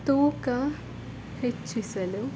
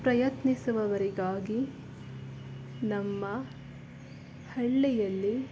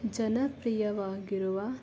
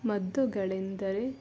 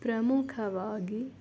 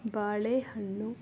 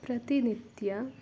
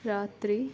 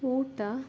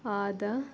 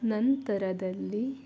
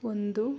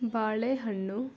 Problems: background sounds at intervals